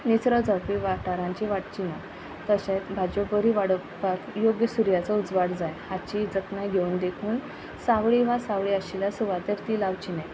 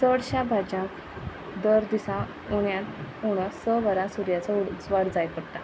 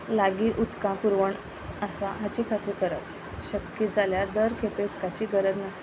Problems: none marked